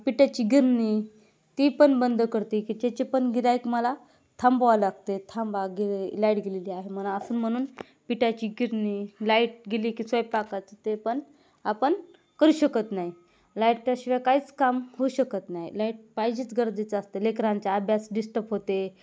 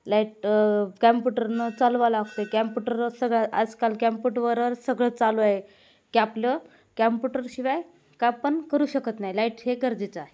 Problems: none marked